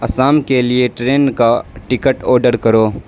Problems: constant background noise